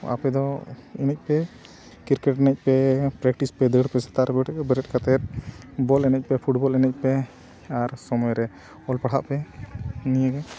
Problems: none marked